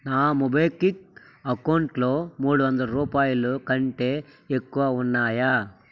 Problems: constant background noise